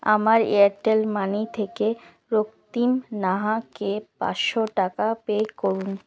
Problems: constant background noise